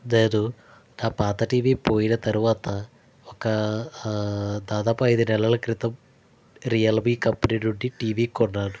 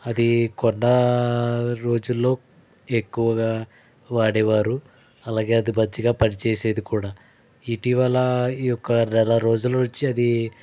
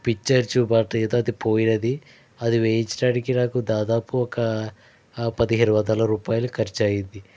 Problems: background sounds at intervals